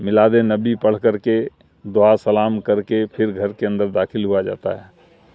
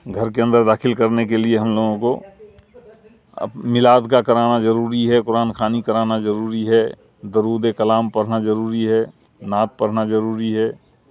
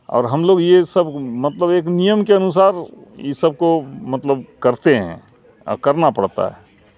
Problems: constant background noise